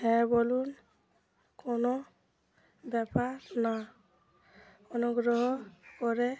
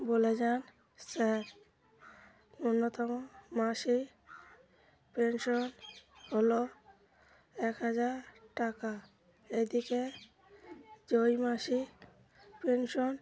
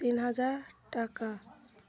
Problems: constant background noise, background conversations at intervals